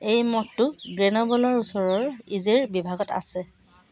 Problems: constant background noise